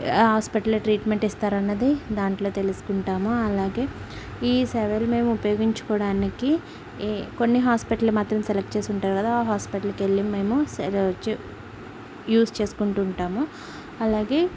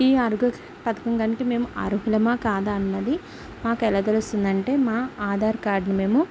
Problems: background sounds at intervals